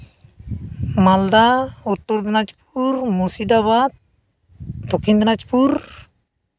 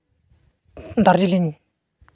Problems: constant background noise